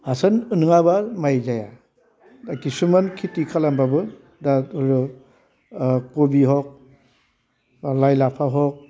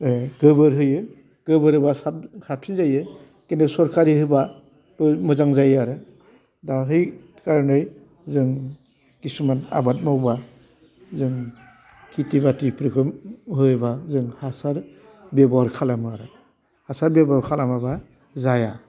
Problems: constant background noise